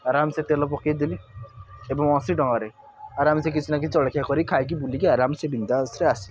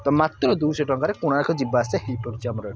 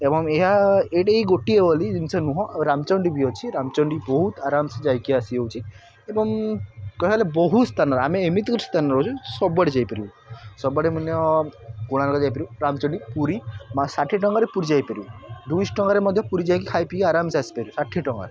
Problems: constant background noise